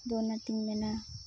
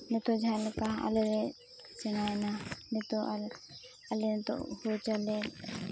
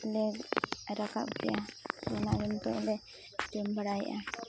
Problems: background sounds at intervals